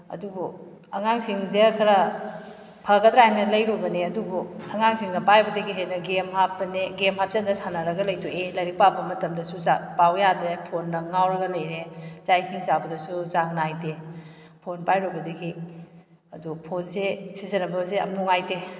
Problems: background sounds at intervals